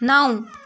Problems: background sounds at intervals